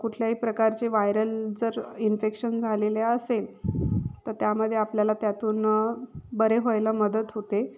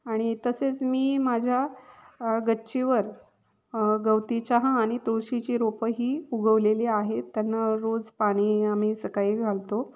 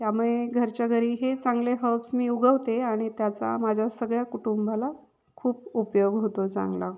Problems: background sounds at intervals